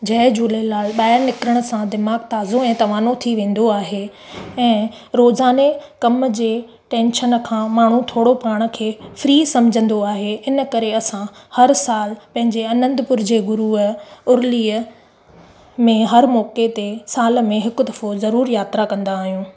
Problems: background sounds at intervals